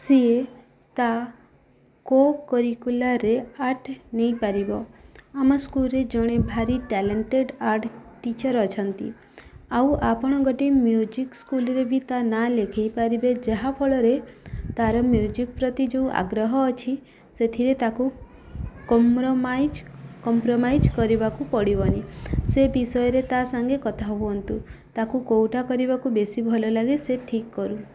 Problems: background sounds at intervals